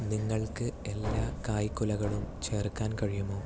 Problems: low volume